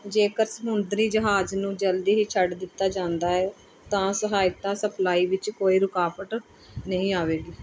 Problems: none marked